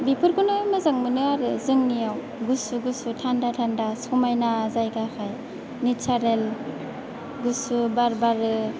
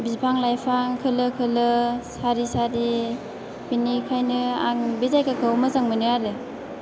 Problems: none marked